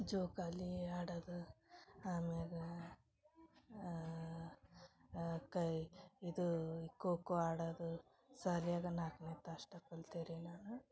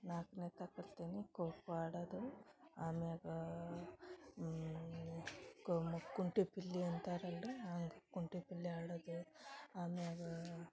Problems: background conversations at intervals, low volume